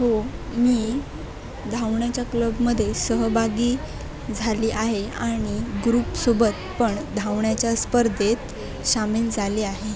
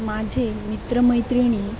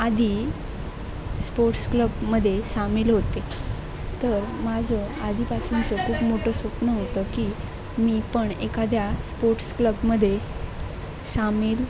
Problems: constant background noise, background conversations at intervals